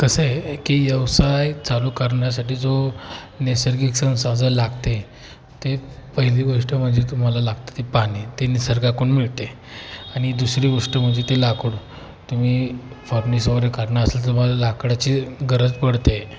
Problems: constant background noise